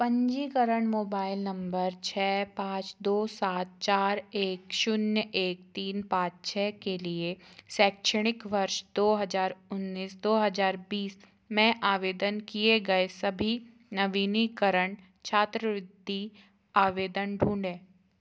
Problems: constant background noise